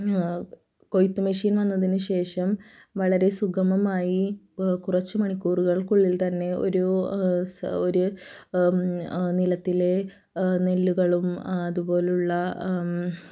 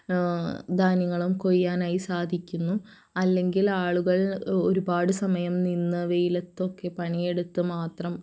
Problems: low volume